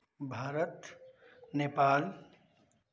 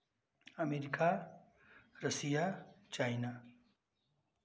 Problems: constant background noise